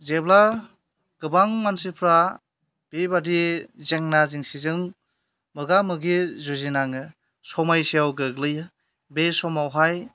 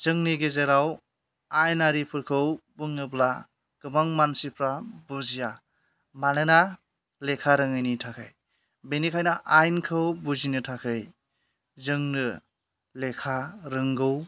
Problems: none marked